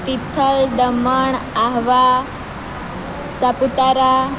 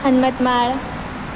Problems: constant background noise